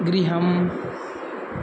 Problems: none marked